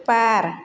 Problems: constant background noise